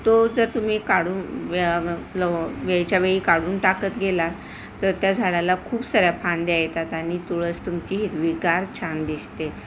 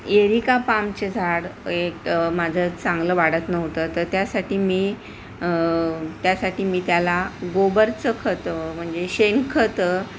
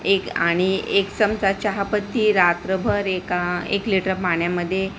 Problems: constant background noise